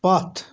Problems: constant background noise